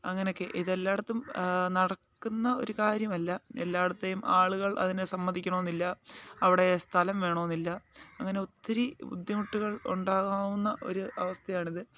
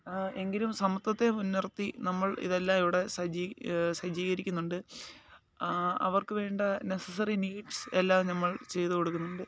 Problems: low volume